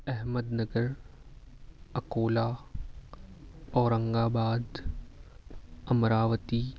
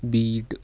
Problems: constant background noise